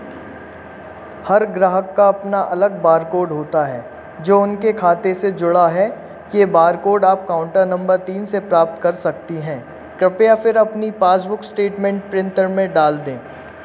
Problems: constant background noise